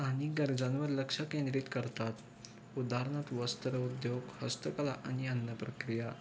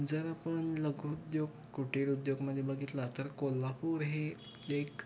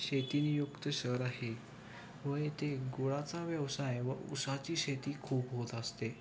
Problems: constant background noise, background conversations at intervals